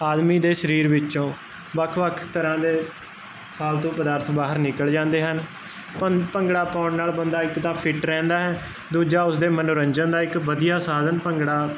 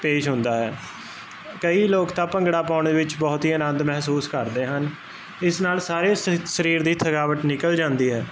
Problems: constant background noise